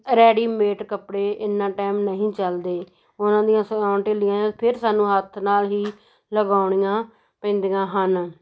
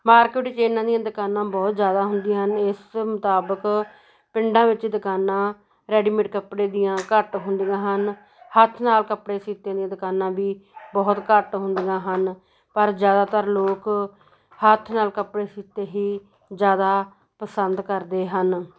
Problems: background sounds at intervals, continuous background conversations